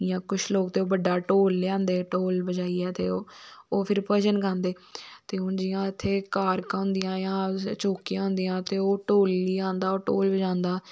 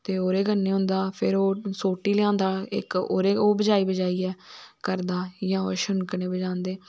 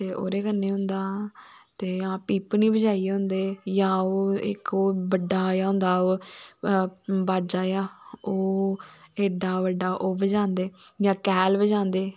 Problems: none marked